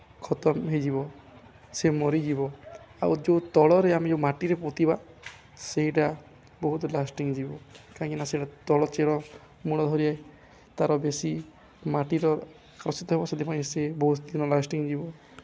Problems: none marked